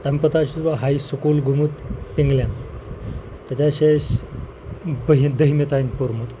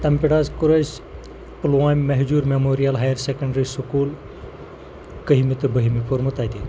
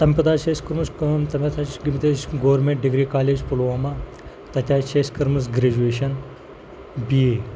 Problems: constant background noise